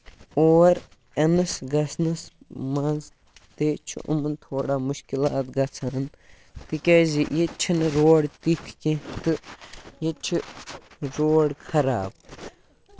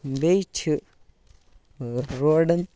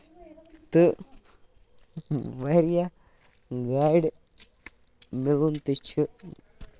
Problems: background sounds at intervals